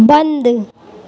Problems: background sounds at intervals